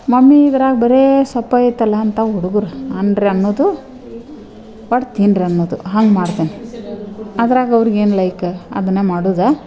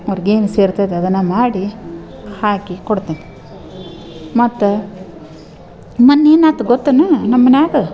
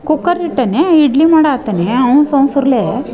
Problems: none marked